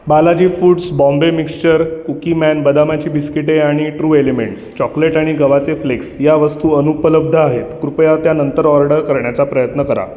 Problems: none marked